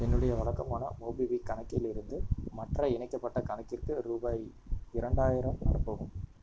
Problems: constant background noise, low volume